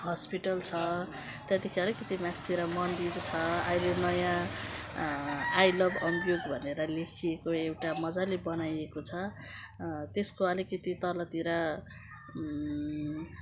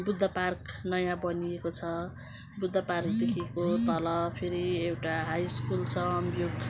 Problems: none marked